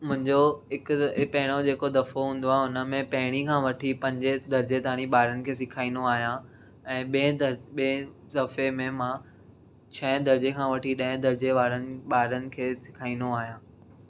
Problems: none marked